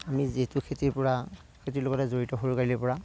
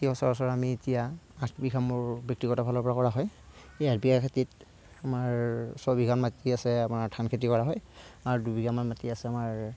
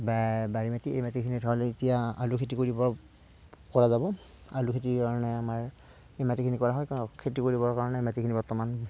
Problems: none marked